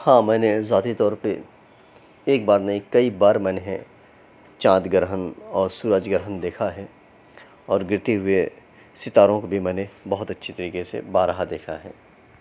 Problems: none marked